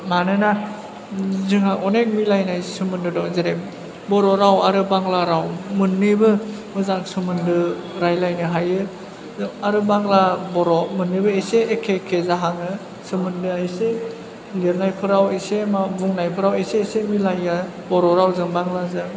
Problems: none marked